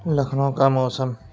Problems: constant background noise